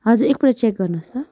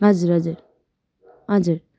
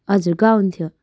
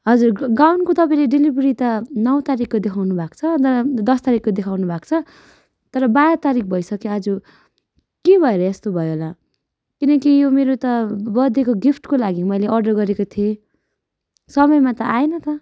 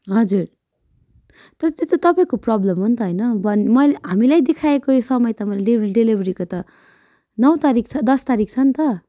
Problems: background sounds at intervals